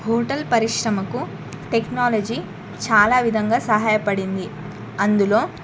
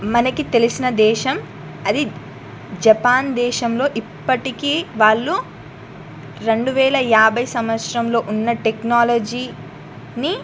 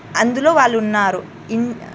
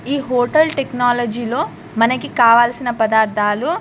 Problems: constant background noise